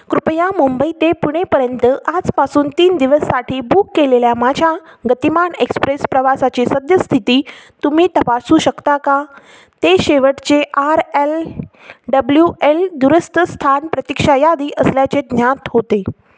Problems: constant background noise